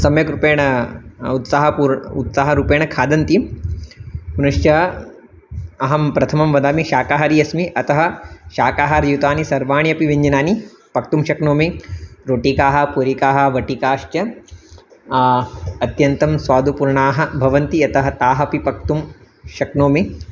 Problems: constant background noise